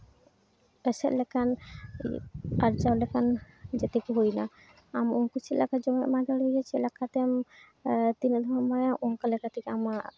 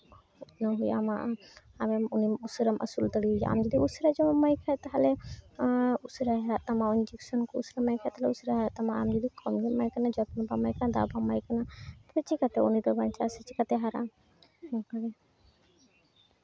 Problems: constant background noise